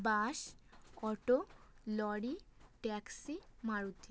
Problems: none marked